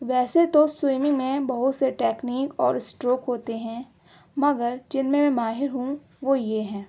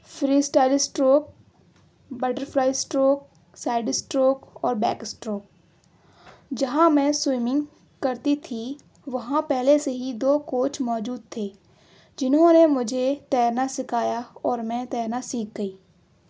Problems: none marked